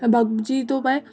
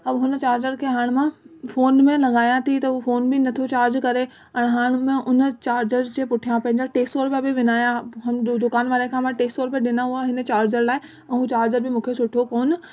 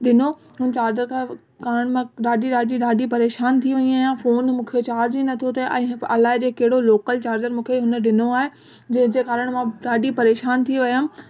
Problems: constant background noise